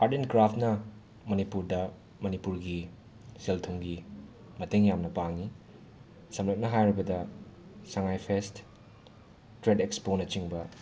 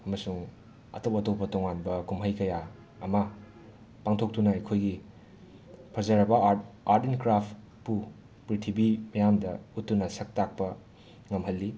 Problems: background sounds at intervals, background conversations at intervals